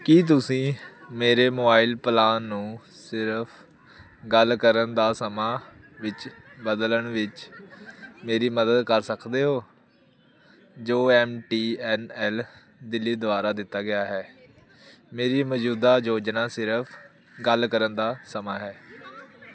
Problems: continuous background conversations